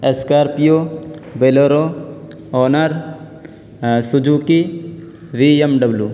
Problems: constant background noise